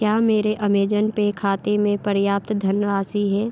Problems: constant background noise